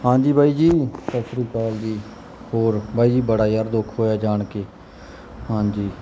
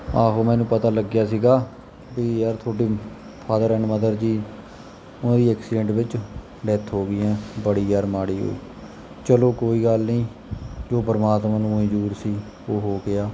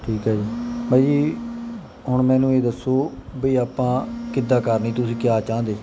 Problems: background sounds at intervals